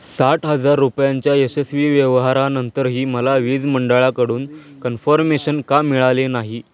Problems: none marked